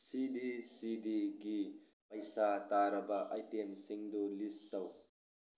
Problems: background sounds at intervals